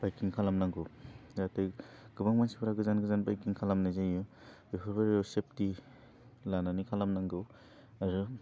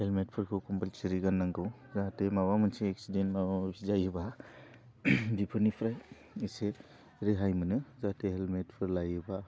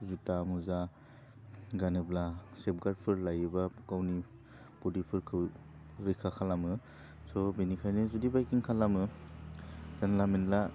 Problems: none marked